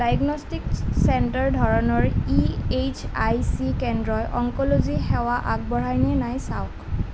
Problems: none marked